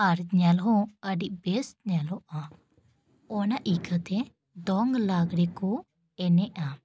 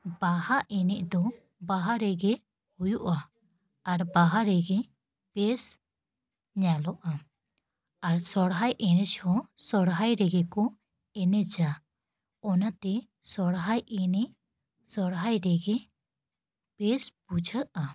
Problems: none marked